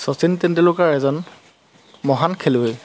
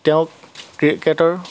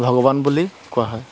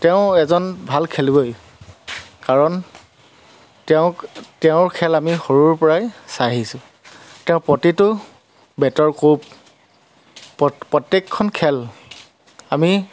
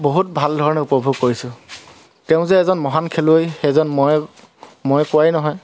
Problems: constant background noise, background conversations at intervals